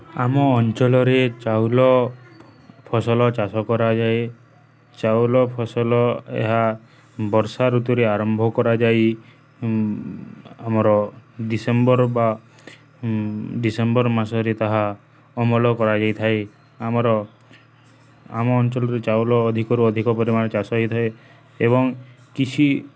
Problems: none marked